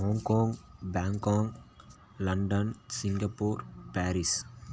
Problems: constant background noise